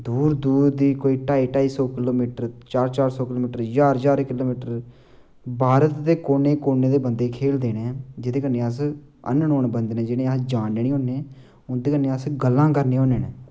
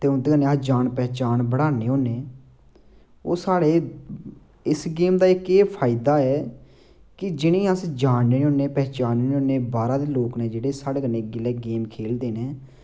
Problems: constant background noise